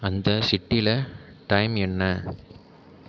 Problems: none marked